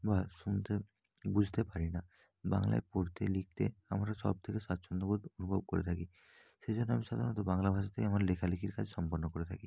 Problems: none marked